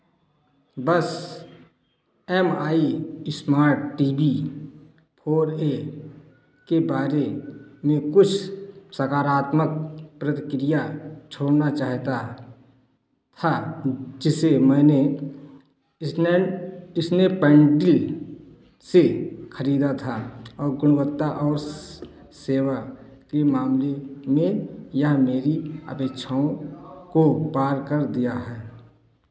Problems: none marked